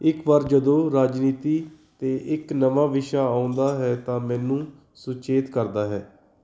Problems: background conversations at intervals